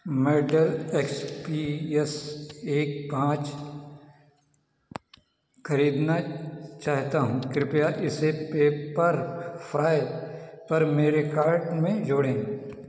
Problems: constant background noise, echo